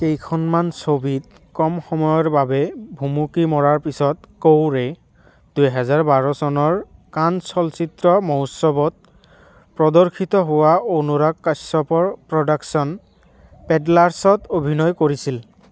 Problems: none marked